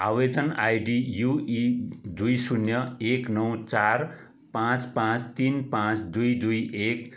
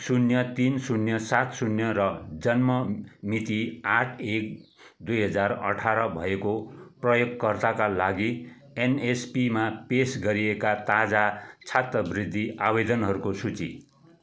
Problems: constant background noise